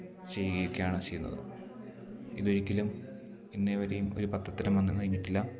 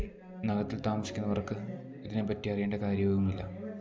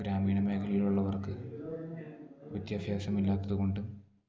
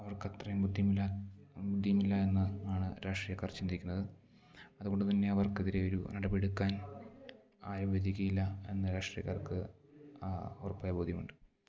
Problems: low volume